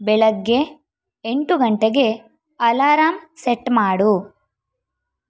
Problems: none marked